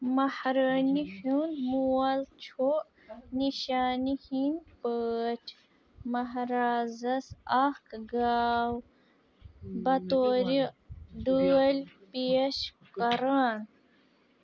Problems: background sounds at intervals, background conversations at intervals